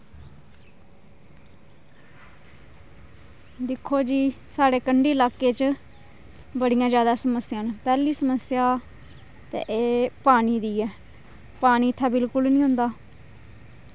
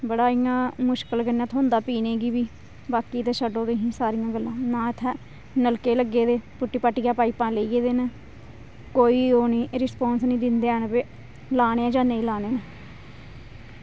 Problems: none marked